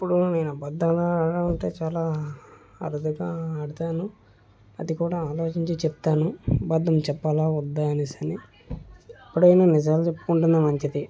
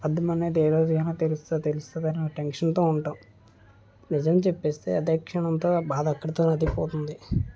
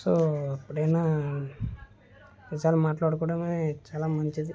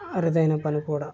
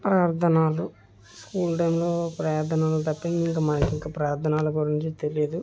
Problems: background sounds at intervals